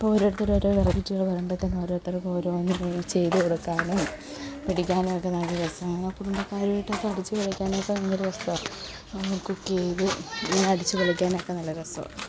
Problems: constant background noise